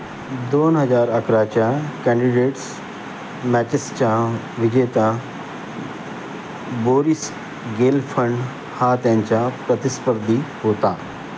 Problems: constant background noise